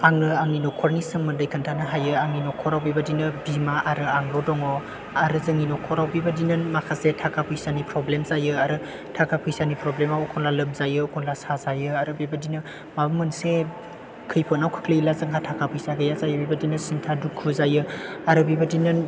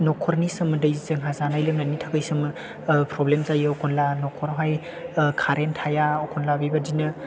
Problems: background sounds at intervals